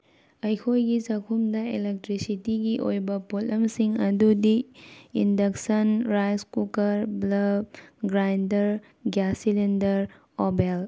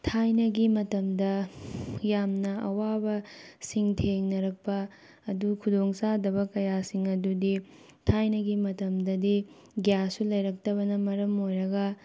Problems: none marked